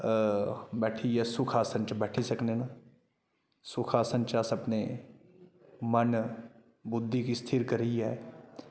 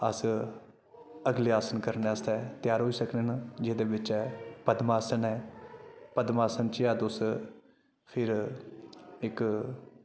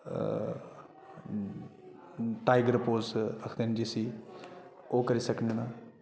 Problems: constant background noise